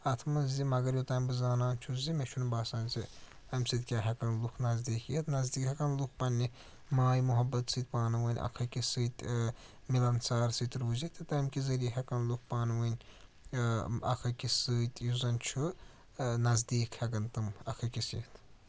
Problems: none marked